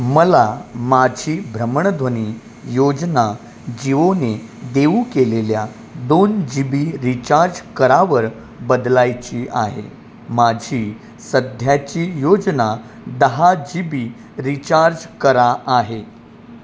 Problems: constant background noise